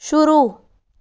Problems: constant background noise